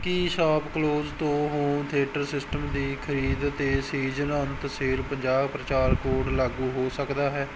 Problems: none marked